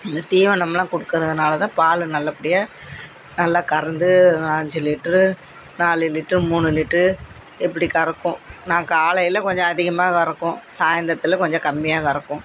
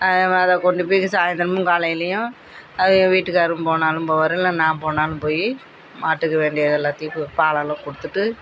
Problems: constant background noise, background conversations at intervals